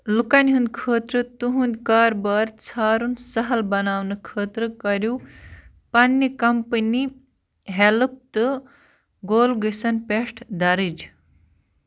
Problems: constant background noise